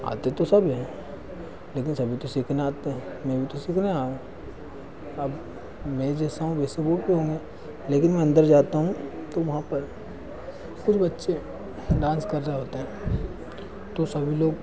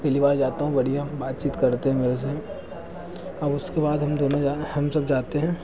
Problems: constant background noise